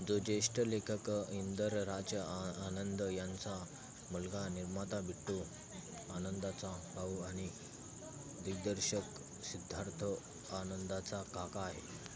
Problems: constant background noise